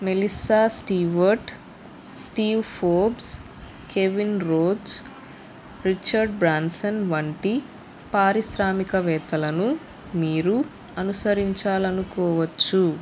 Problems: constant background noise